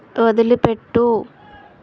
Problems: constant background noise, background conversations at intervals